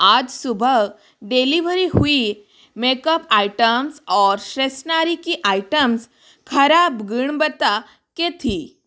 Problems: background sounds at intervals